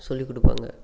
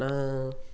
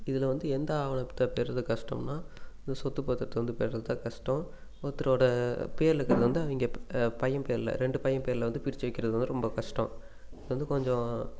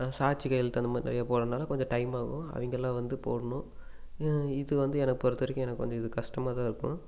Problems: none marked